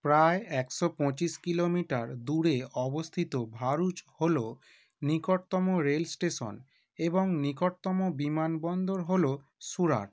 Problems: none marked